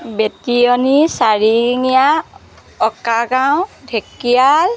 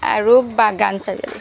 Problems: background sounds at intervals